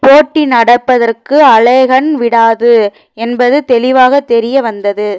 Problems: background sounds at intervals